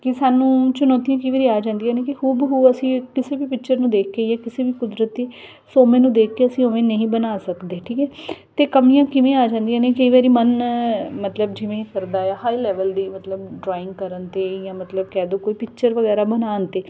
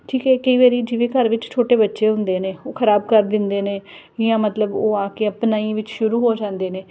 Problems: none marked